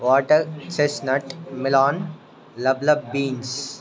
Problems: constant background noise